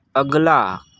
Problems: background sounds at intervals